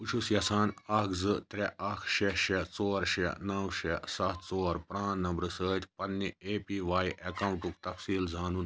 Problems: none marked